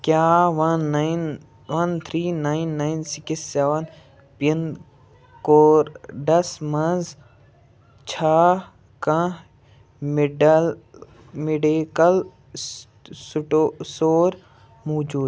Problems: none marked